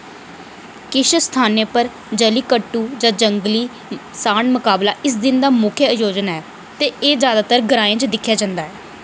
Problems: none marked